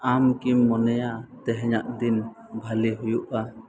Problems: constant background noise